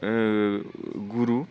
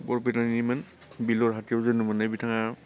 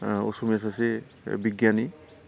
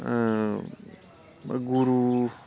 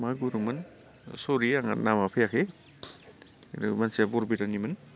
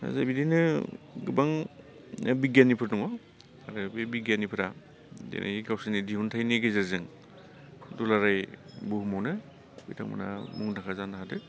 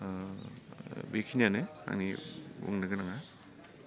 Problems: low volume